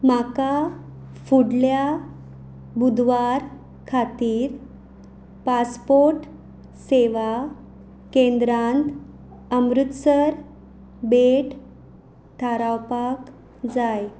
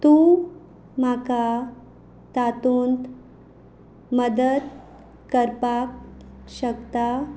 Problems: background sounds at intervals